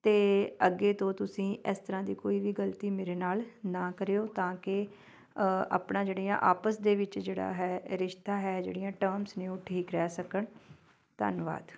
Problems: background sounds at intervals